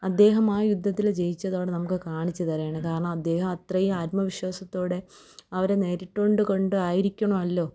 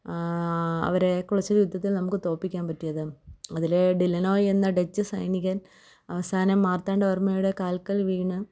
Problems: low volume